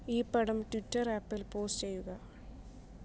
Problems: low volume